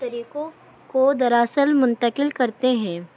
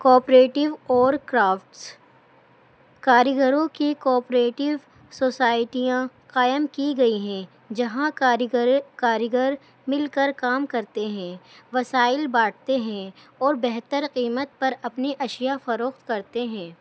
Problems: constant background noise